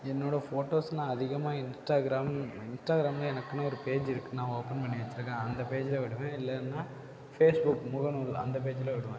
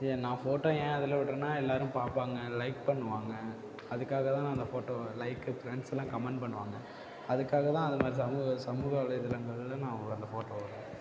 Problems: none marked